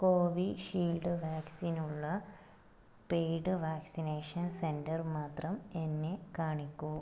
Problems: low volume